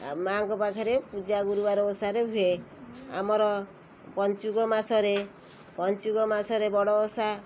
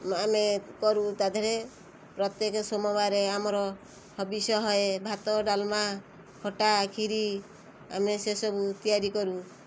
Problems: constant background noise